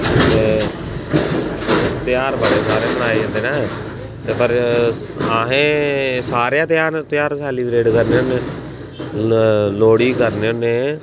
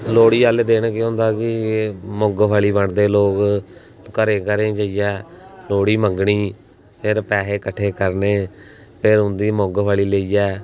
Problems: background sounds at intervals